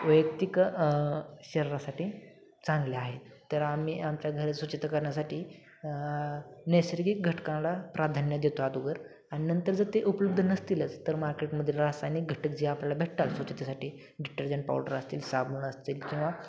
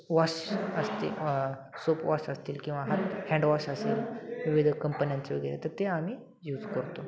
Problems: constant background noise, continuous background conversations